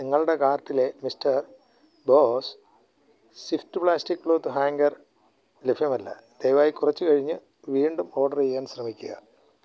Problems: low volume